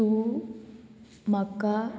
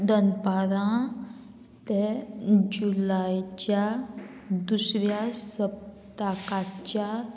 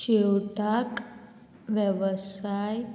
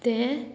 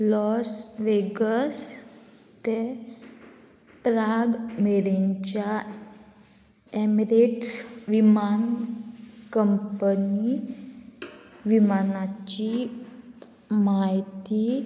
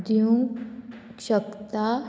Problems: constant background noise